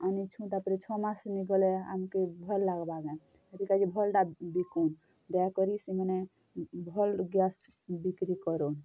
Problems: low volume